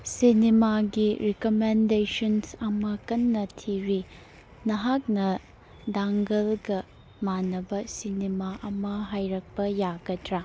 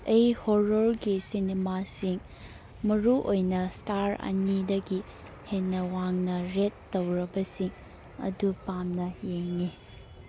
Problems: background sounds at intervals, background conversations at intervals